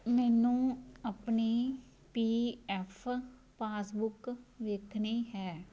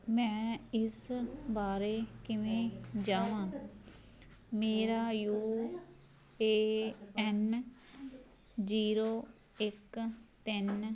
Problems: background sounds at intervals